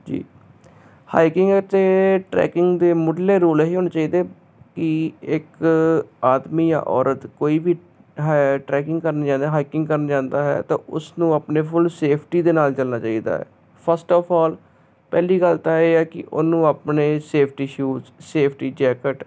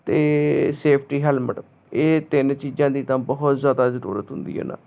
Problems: constant background noise